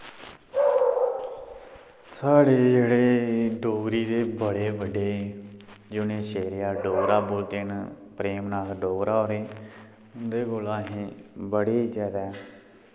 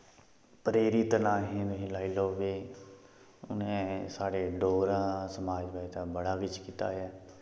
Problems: background sounds at intervals